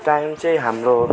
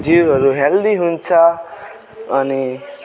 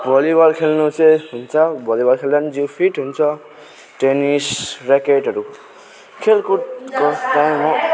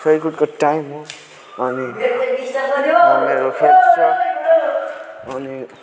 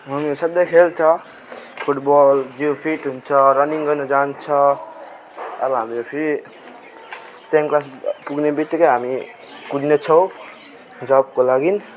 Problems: continuous background conversations